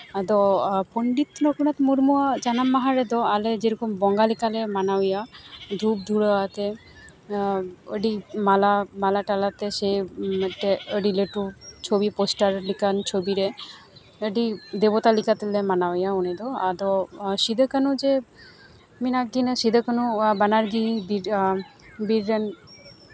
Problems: none marked